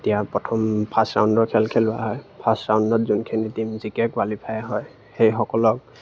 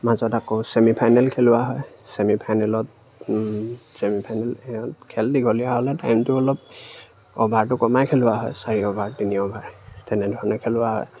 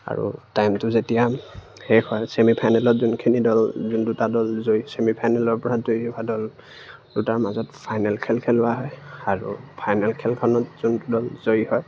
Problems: background sounds at intervals